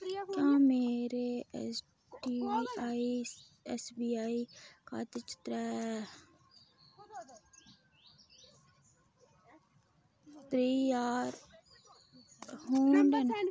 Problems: background sounds at intervals, background conversations at intervals